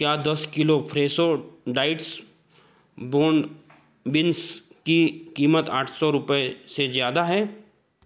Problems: none marked